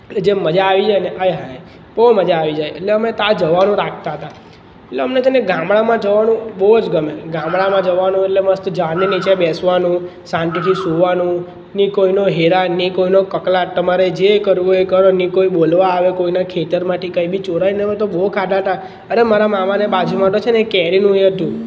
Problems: none marked